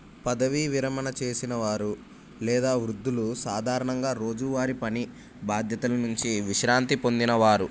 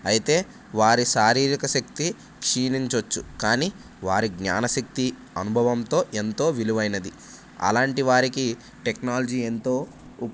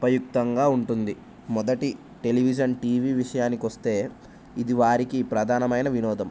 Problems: none marked